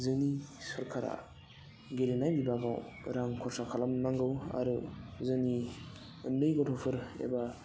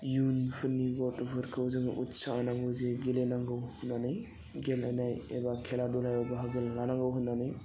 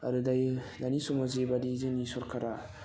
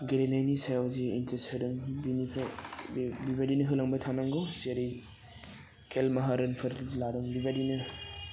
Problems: constant background noise